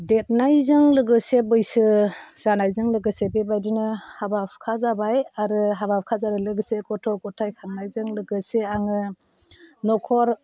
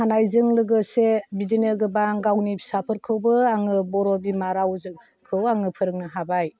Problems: none marked